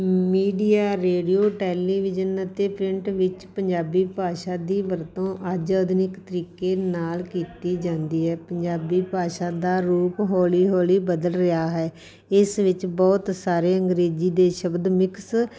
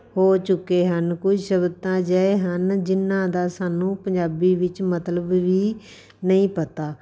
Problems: background sounds at intervals